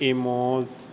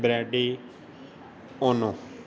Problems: constant background noise